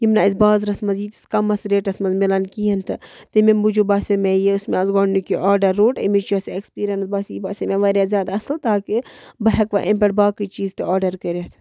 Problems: none marked